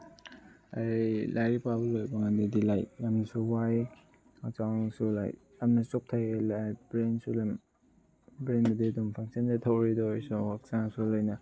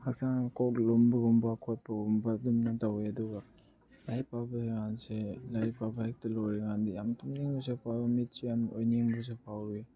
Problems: background conversations at intervals